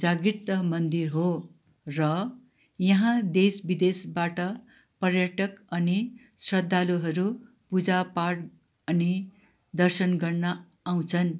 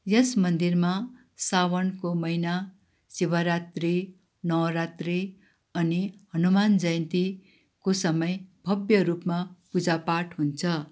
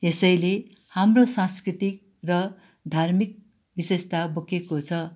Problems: none marked